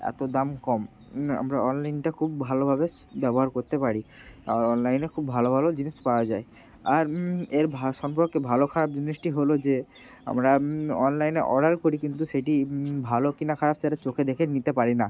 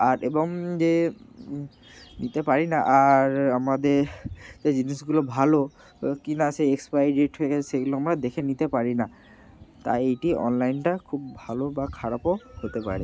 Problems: constant background noise